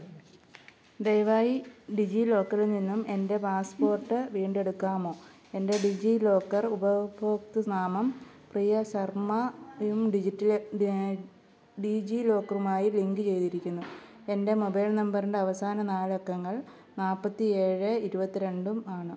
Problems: low volume